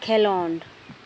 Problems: constant background noise